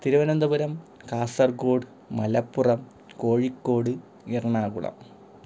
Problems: background sounds at intervals